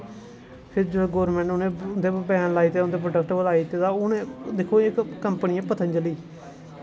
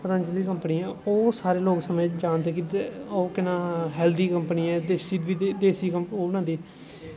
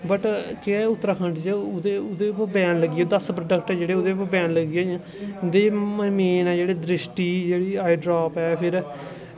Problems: constant background noise